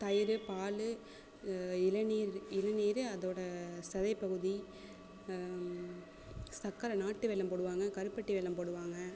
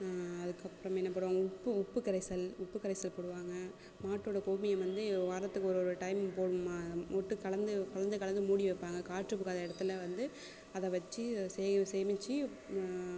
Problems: constant background noise